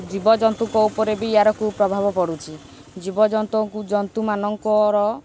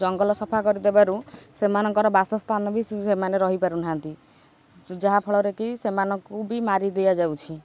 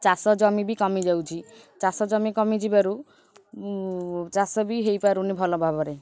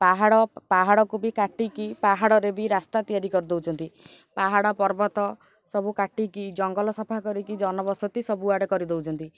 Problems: constant background noise